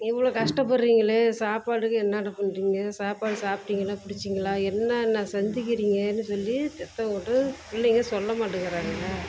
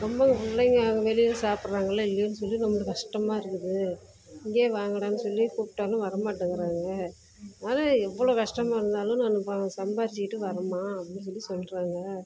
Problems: background sounds at intervals